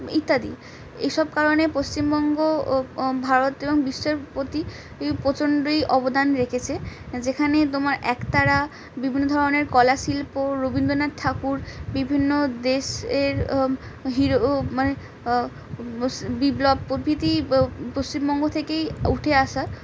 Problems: none marked